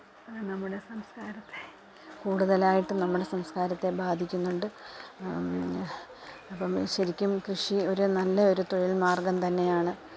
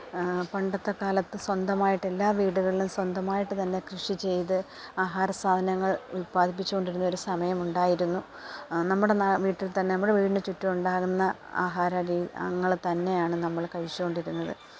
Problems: background sounds at intervals, low volume